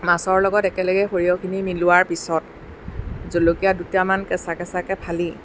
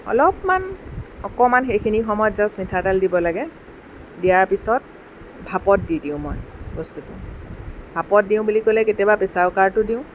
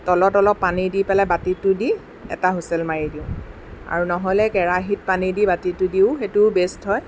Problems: none marked